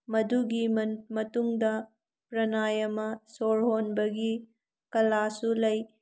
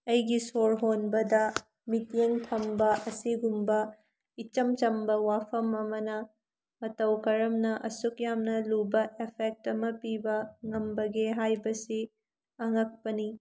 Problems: none marked